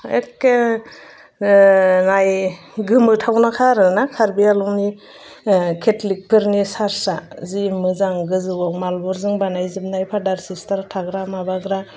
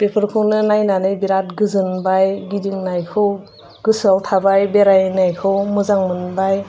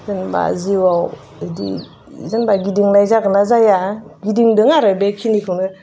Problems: constant background noise